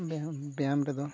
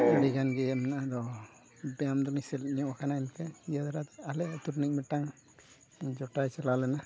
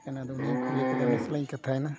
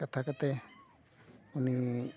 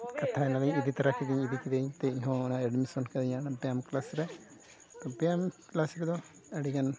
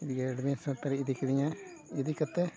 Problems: constant background noise, background conversations at intervals